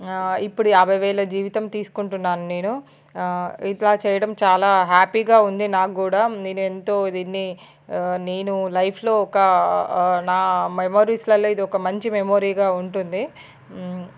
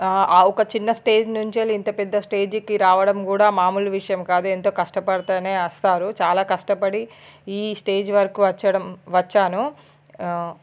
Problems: none marked